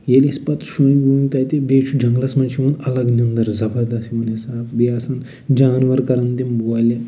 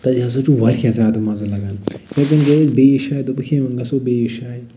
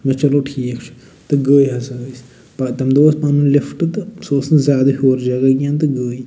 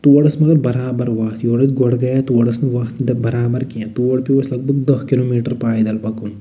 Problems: none marked